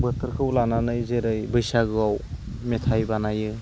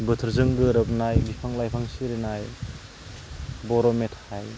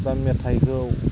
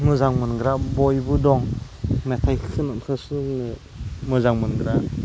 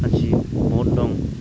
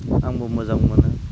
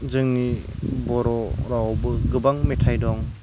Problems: constant background noise